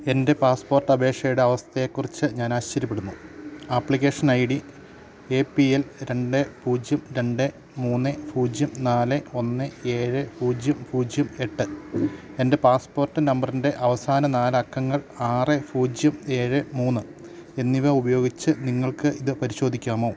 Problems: none marked